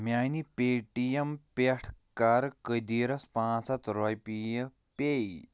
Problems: none marked